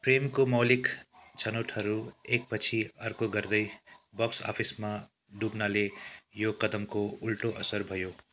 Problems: none marked